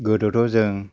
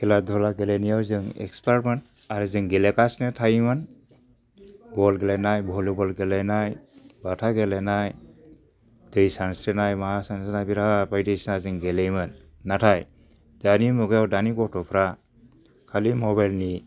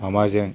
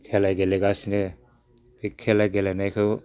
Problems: low volume